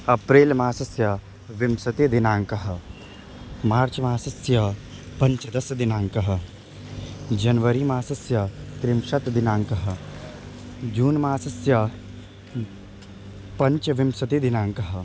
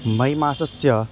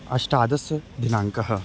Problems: constant background noise